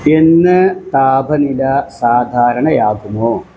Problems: constant background noise